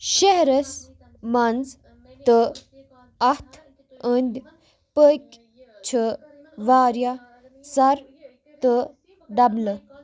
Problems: background sounds at intervals, background conversations at intervals